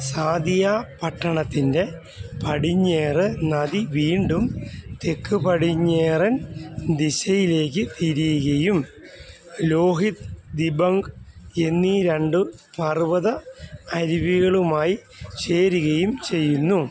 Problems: none marked